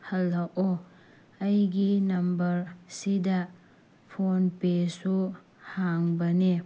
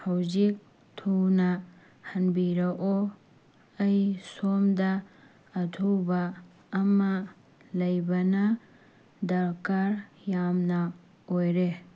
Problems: none marked